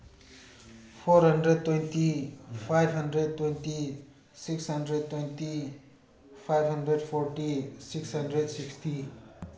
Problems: background sounds at intervals